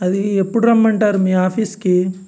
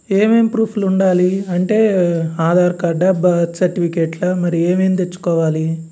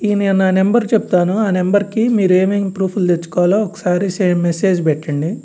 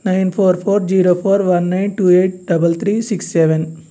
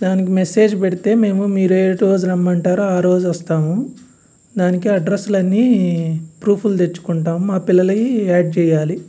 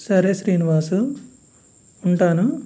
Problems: none marked